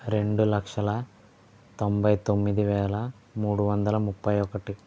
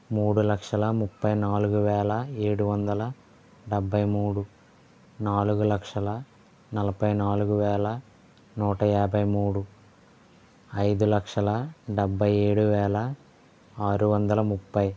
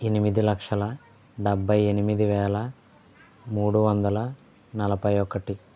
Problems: none marked